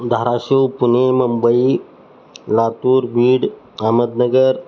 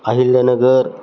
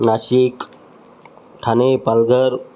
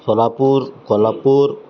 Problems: none marked